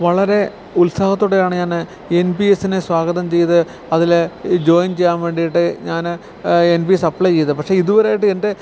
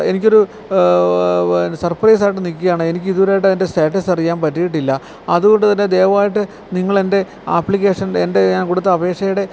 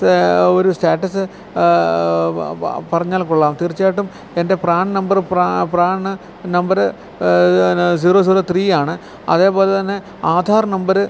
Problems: constant background noise